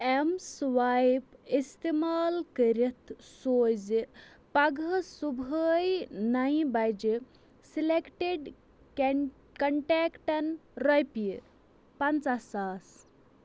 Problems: constant background noise